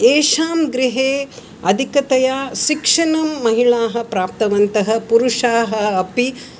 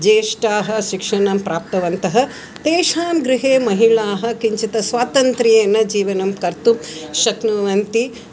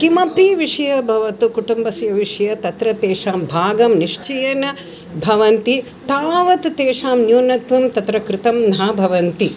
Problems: continuous background conversations